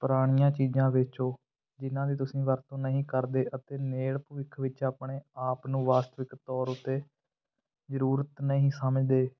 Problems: none marked